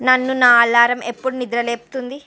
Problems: none marked